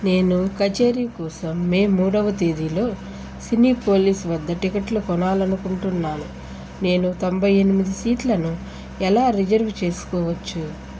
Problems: constant background noise